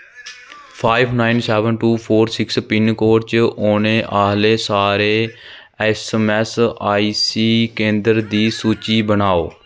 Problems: constant background noise